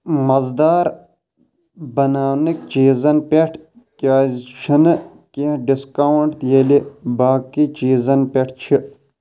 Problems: none marked